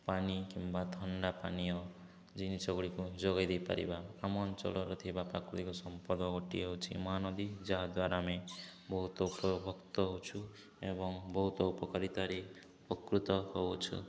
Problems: none marked